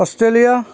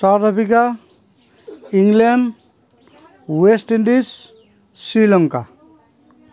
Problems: none marked